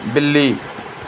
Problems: none marked